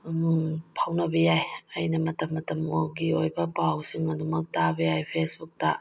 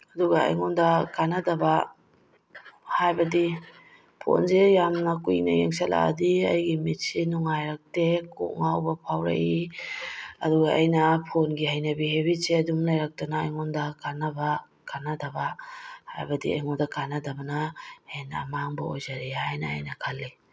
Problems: background sounds at intervals